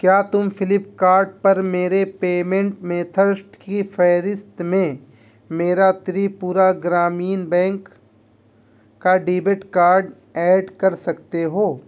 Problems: none marked